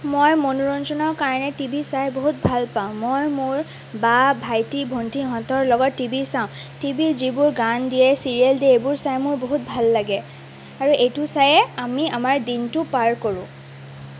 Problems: constant background noise